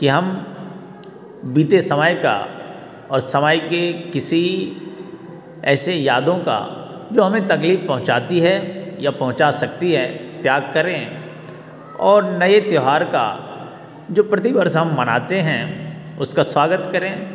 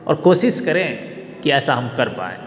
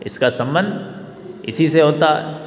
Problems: background sounds at intervals